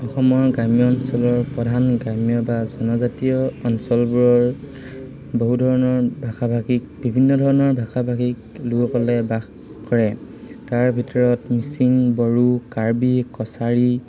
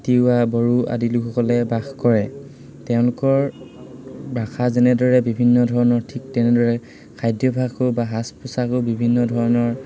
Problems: constant background noise, background conversations at intervals